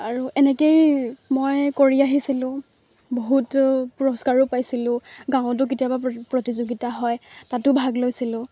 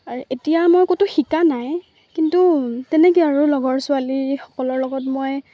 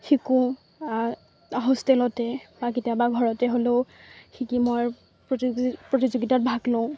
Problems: constant background noise